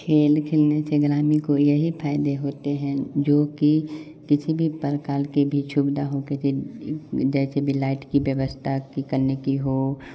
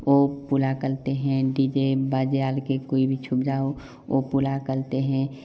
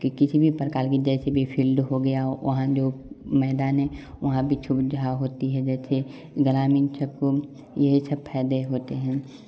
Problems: none marked